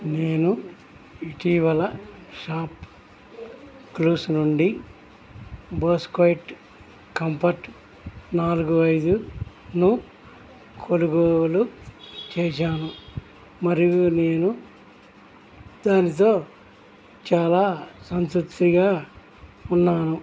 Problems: background sounds at intervals, background conversations at intervals